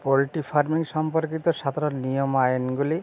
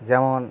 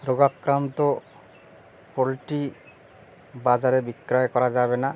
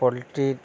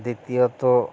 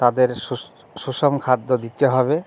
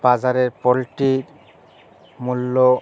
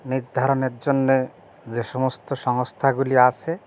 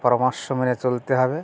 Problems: background sounds at intervals